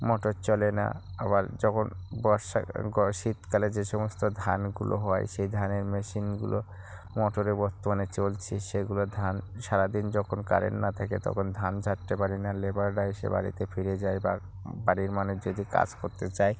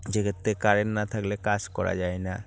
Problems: none marked